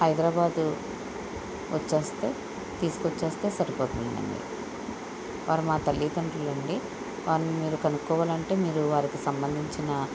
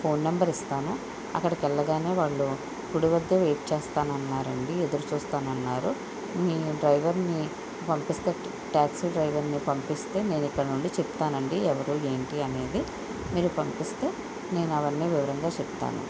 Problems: constant background noise